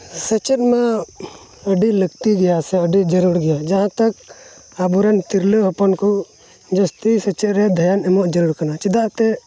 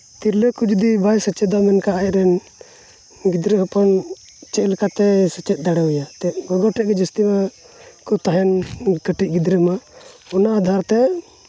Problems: constant background noise